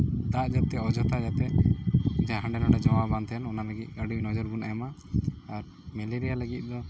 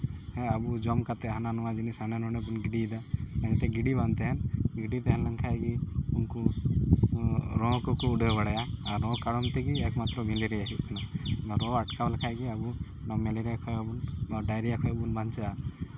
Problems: background sounds at intervals